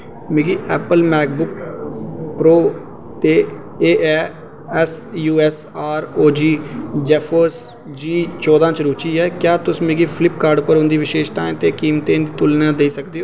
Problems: constant background noise, echo